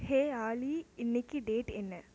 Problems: constant background noise